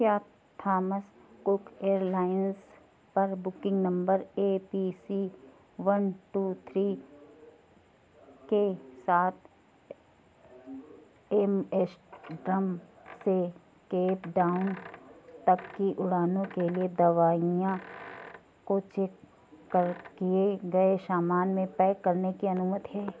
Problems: none marked